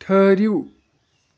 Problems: none marked